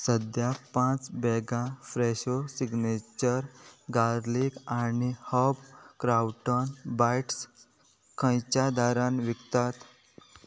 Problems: none marked